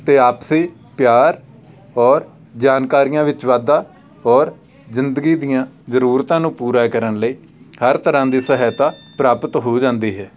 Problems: background sounds at intervals, background conversations at intervals